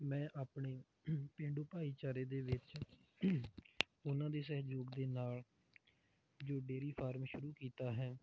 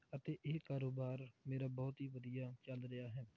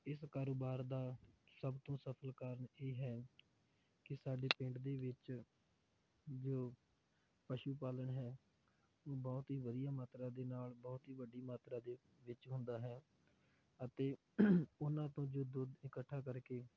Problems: low volume